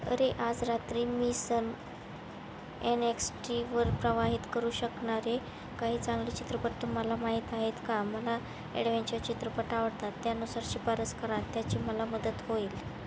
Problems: constant background noise